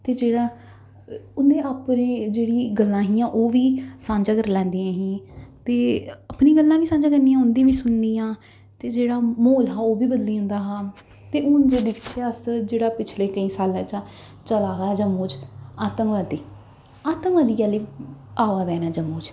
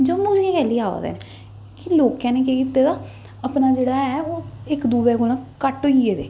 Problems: echo